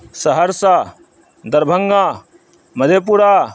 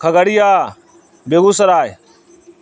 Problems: constant background noise